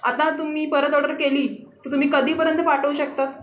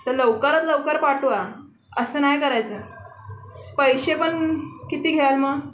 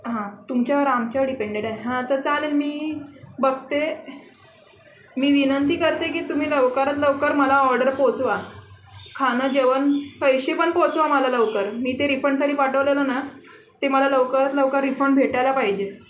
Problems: constant background noise, background conversations at intervals, echo